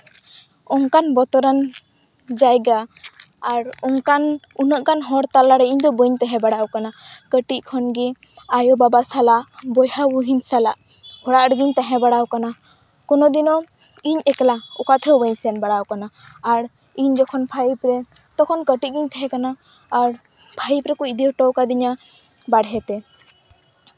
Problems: none marked